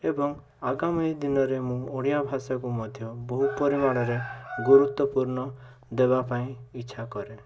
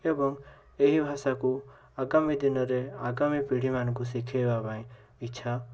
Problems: constant background noise